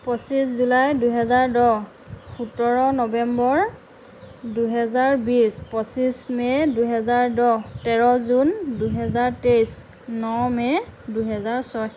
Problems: none marked